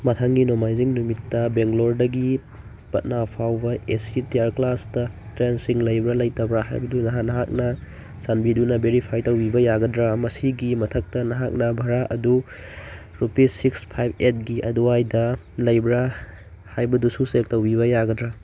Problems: none marked